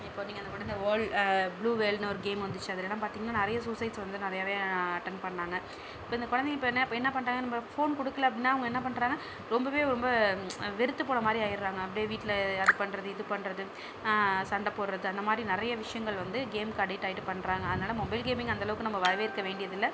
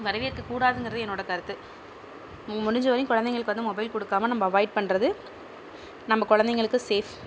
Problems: low volume